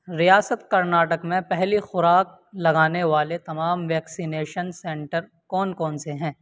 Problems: constant background noise